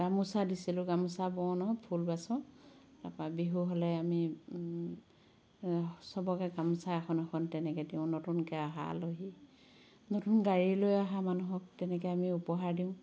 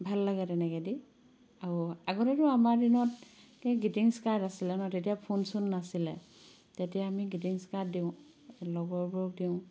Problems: background sounds at intervals